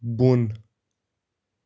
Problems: background sounds at intervals